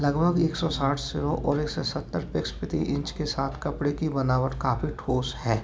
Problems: background sounds at intervals, background conversations at intervals